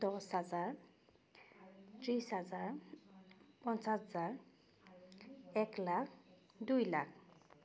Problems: background sounds at intervals, background conversations at intervals